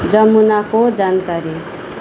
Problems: none marked